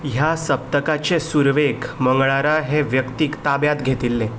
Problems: background sounds at intervals